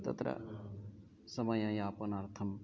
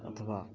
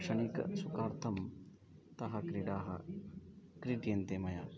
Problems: continuous background conversations